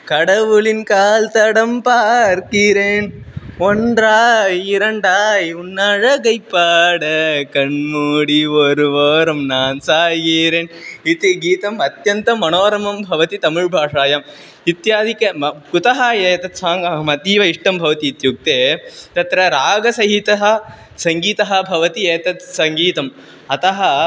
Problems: constant background noise, continuous background conversations